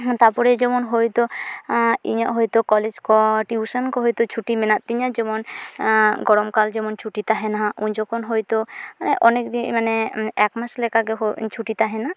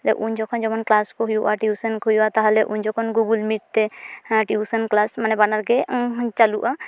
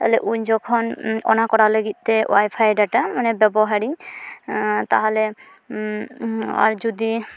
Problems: background sounds at intervals